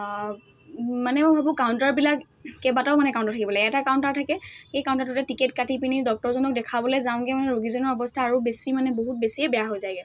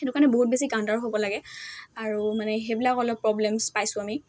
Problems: constant background noise, background conversations at intervals